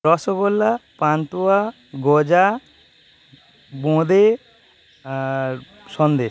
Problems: constant background noise